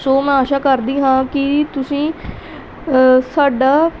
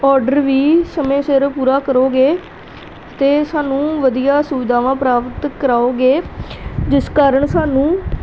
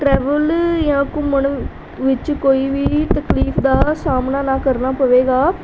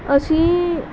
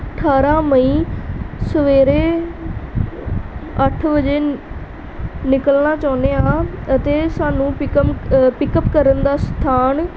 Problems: none marked